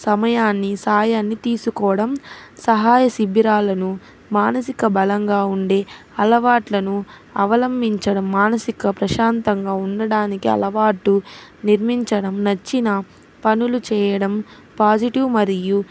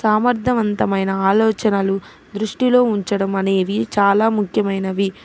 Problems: constant background noise